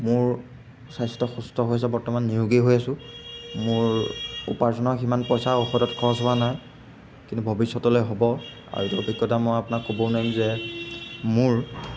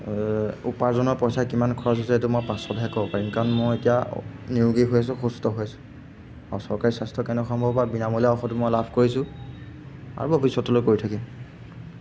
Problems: background sounds at intervals